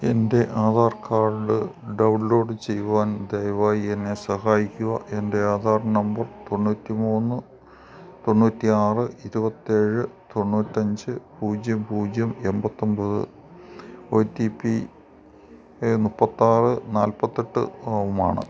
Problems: background sounds at intervals